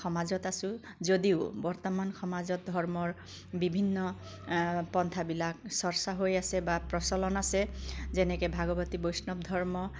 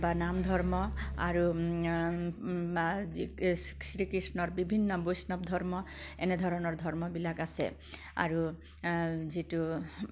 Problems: none marked